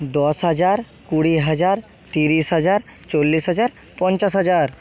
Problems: background sounds at intervals